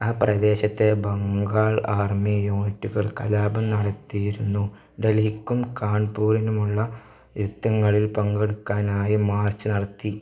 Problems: low volume